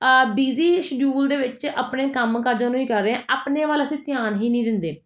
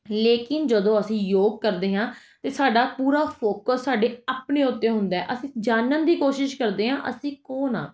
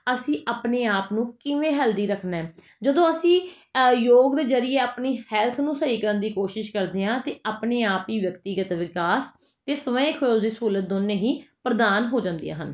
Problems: none marked